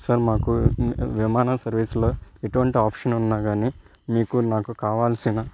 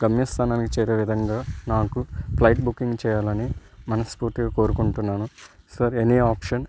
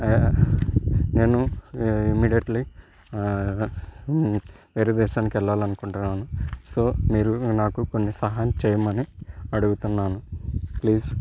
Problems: background sounds at intervals